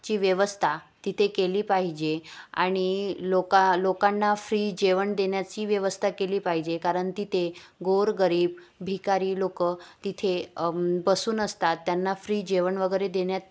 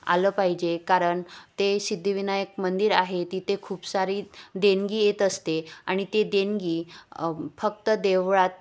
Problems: constant background noise, background conversations at intervals